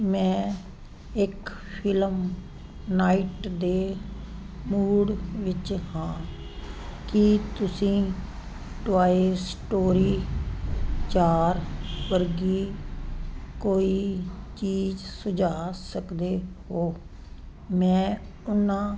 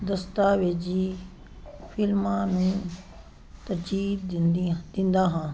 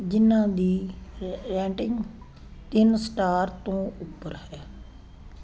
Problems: constant background noise